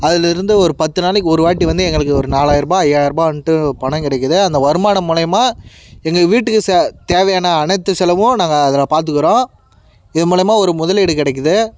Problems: background sounds at intervals